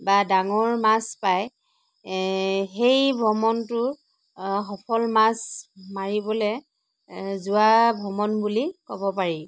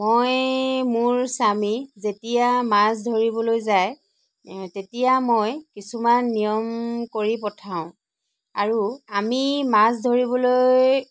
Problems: none marked